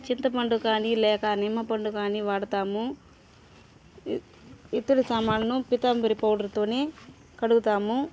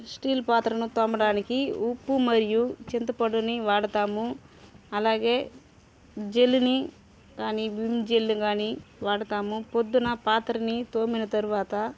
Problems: constant background noise, background conversations at intervals